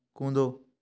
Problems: background sounds at intervals